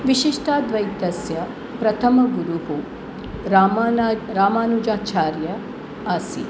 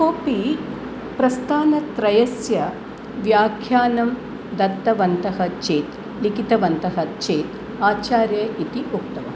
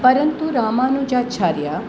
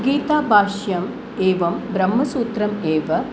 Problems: none marked